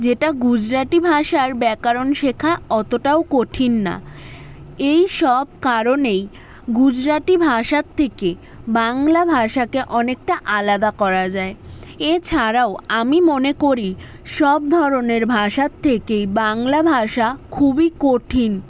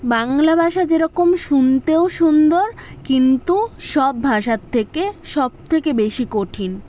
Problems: none marked